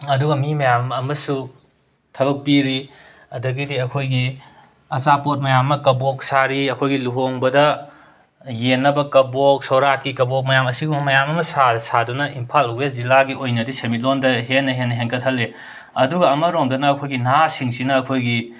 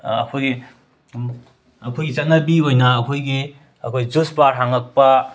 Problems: background sounds at intervals